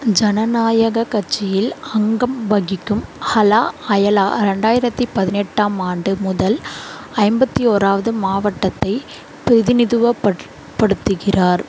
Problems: constant background noise